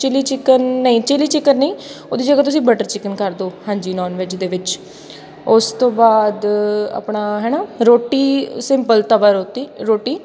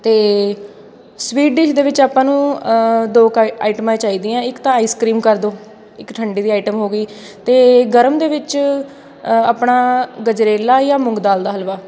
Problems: constant background noise, background conversations at intervals